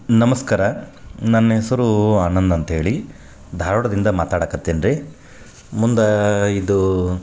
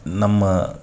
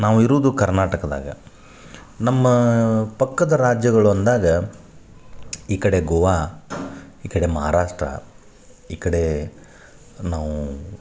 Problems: none marked